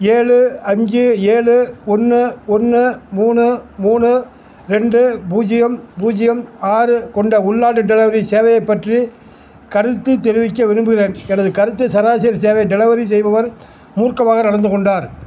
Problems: none marked